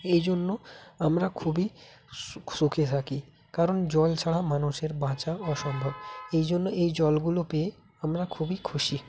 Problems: constant background noise